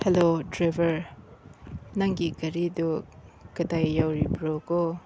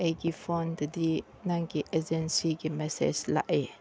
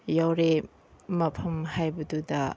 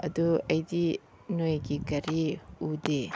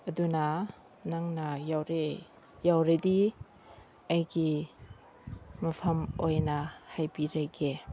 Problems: background sounds at intervals